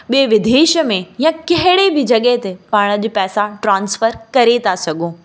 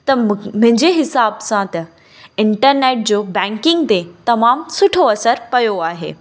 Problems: constant background noise, echo